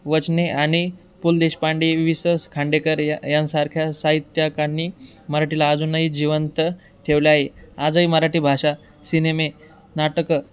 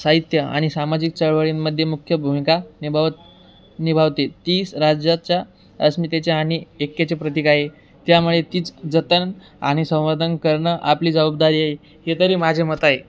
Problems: background sounds at intervals